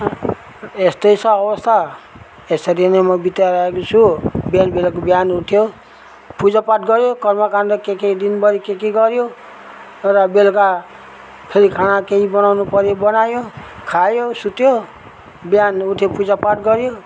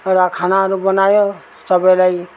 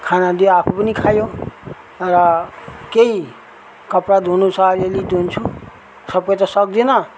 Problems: none marked